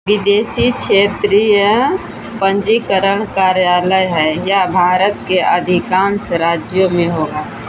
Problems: constant background noise